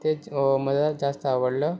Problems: none marked